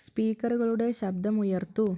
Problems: none marked